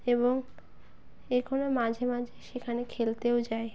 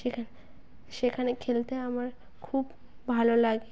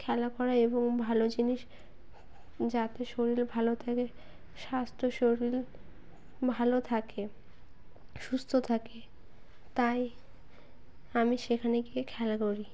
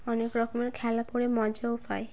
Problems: background sounds at intervals